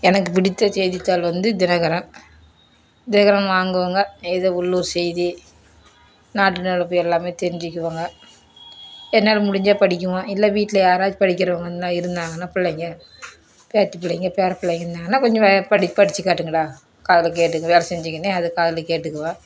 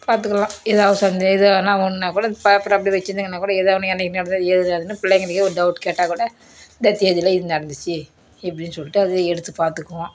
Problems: background sounds at intervals